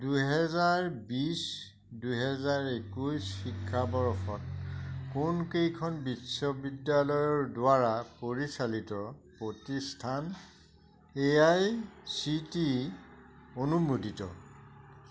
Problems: none marked